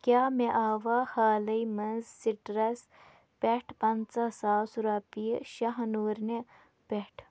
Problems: background sounds at intervals